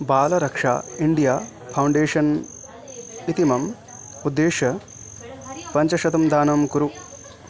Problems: constant background noise, continuous background conversations